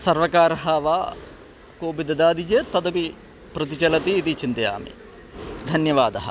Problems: constant background noise